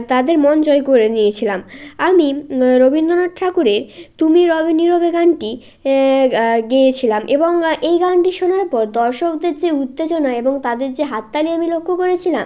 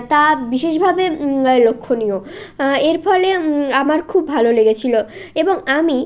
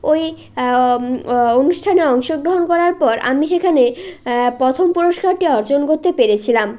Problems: constant background noise